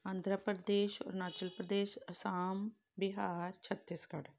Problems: background sounds at intervals